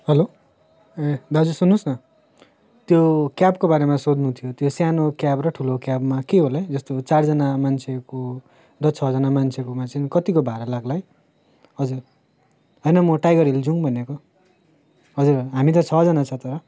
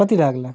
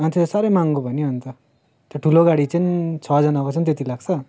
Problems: constant background noise